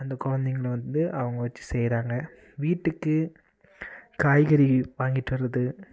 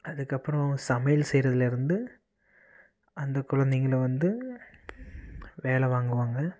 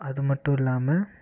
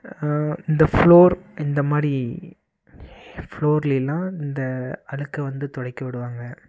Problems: none marked